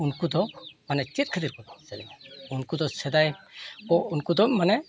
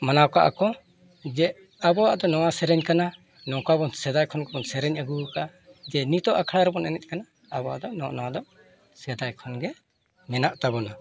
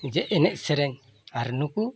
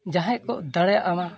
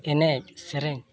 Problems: constant background noise, continuous background conversations